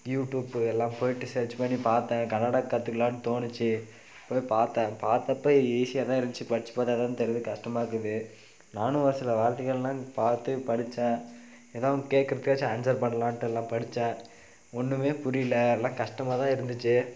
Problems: none marked